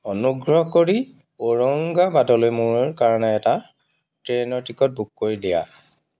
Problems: constant background noise